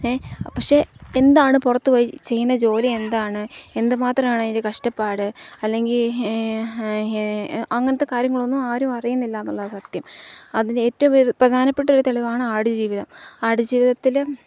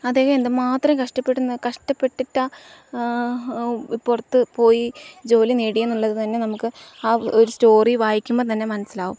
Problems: none marked